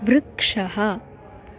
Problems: constant background noise